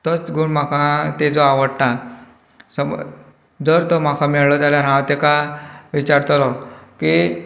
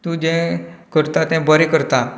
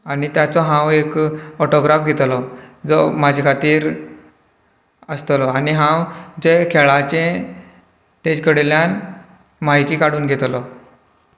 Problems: background conversations at intervals